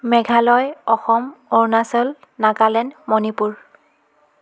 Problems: continuous background conversations